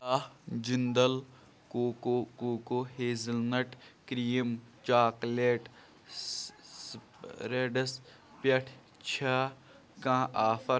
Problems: background sounds at intervals